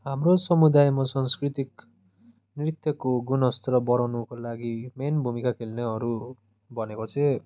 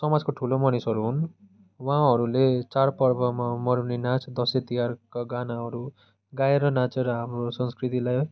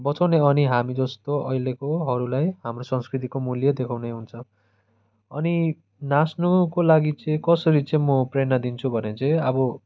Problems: constant background noise